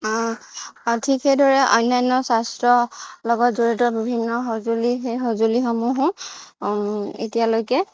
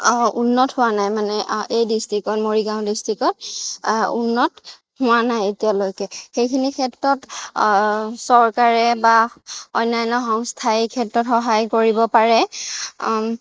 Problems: none marked